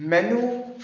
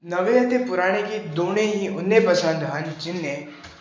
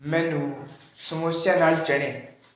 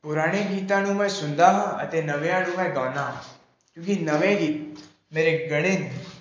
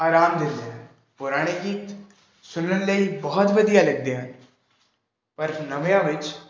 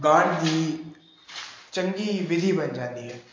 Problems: background sounds at intervals